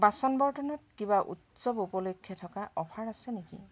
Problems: background sounds at intervals